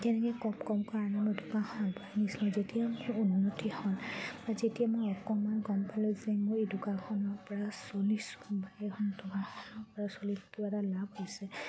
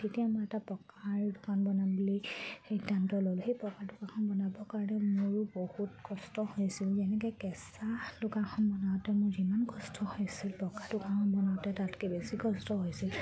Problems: background sounds at intervals